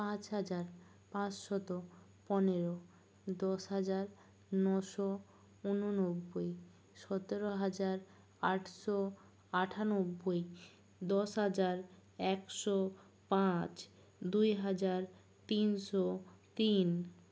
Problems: low volume